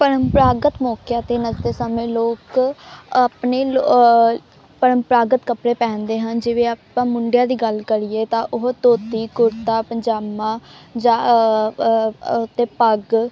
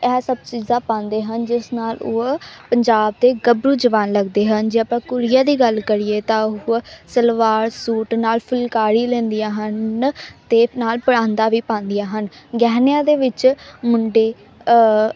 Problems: background sounds at intervals